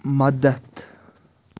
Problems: constant background noise